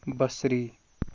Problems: constant background noise